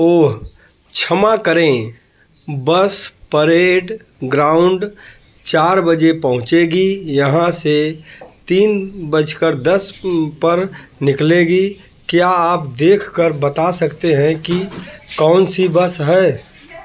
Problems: constant background noise